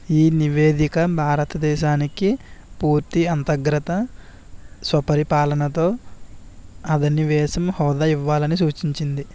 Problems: none marked